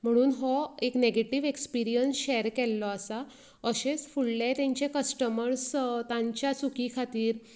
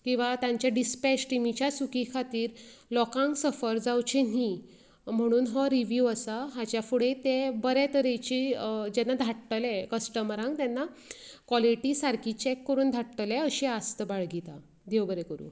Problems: none marked